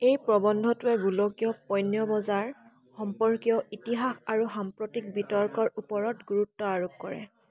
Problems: constant background noise, background conversations at intervals